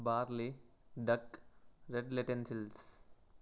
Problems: none marked